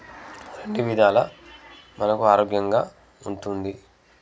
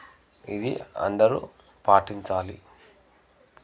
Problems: background conversations at intervals